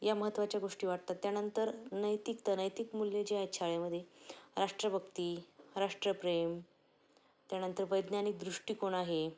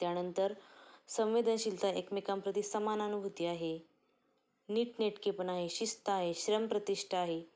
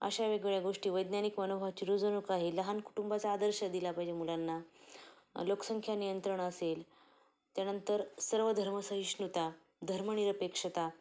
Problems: background sounds at intervals, low volume